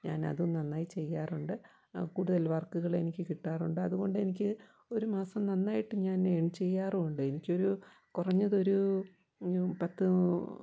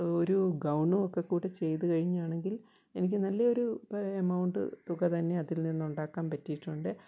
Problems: low volume